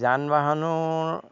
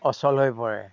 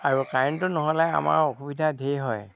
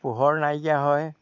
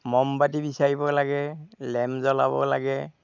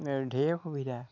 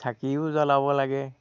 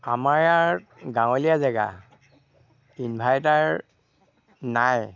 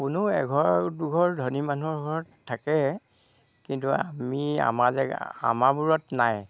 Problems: background sounds at intervals, low volume